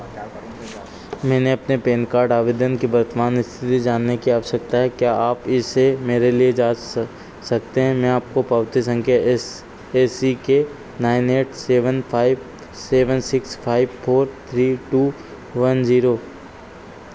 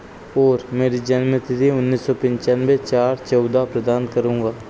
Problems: constant background noise